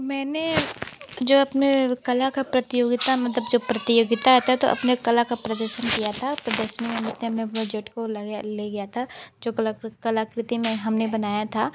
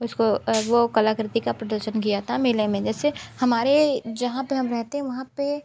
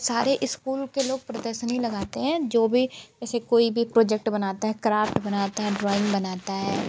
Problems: constant background noise